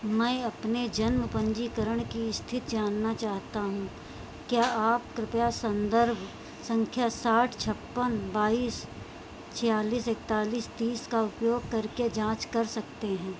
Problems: constant background noise, low volume